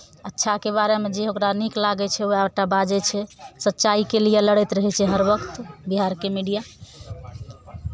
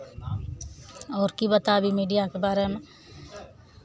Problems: none marked